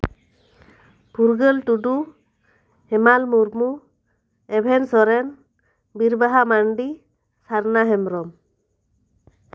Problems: none marked